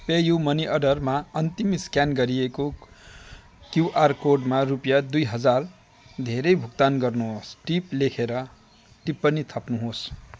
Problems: constant background noise, continuous background conversations